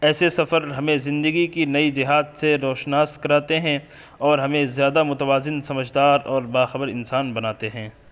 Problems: constant background noise